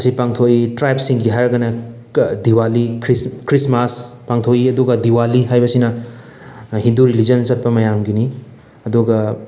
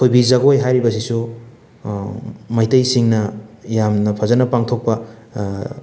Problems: none marked